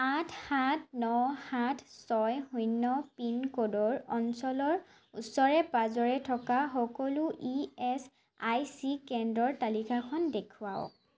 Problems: constant background noise